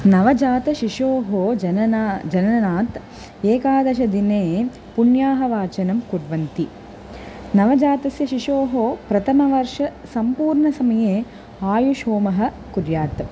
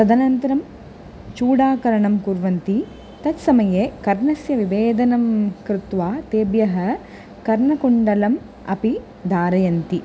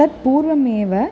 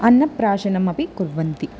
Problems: constant background noise